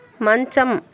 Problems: background sounds at intervals